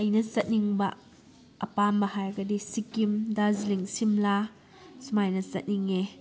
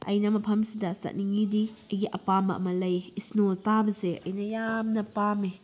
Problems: background conversations at intervals